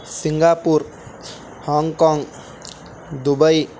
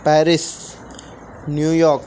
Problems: constant background noise